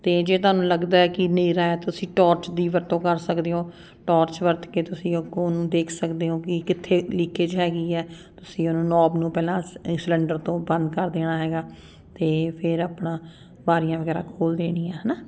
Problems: none marked